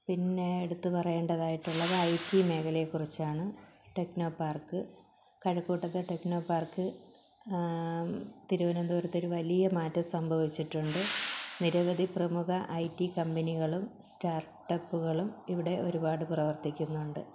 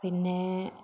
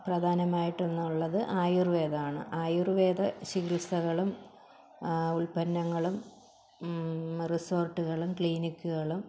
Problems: background sounds at intervals, low volume